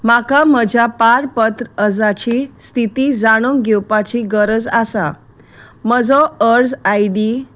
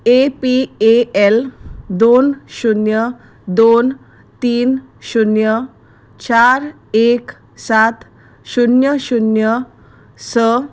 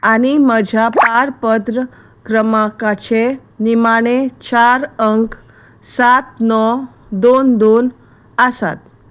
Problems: none marked